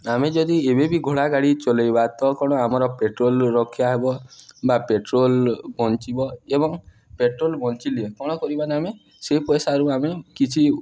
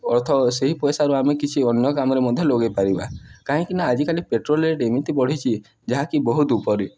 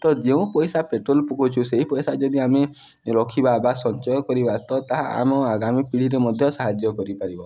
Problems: background sounds at intervals